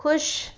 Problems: none marked